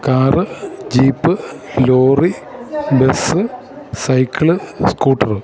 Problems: none marked